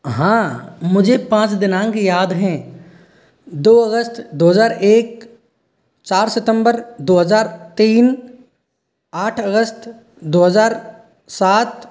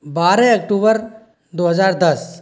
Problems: none marked